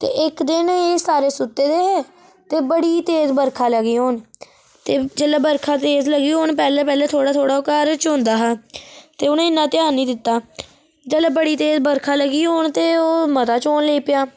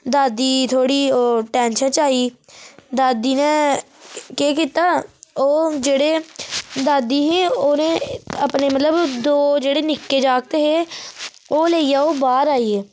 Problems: none marked